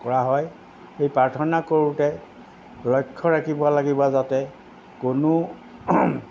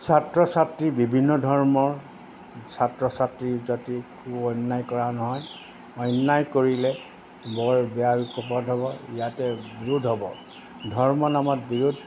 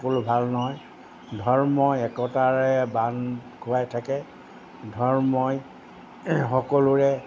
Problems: constant background noise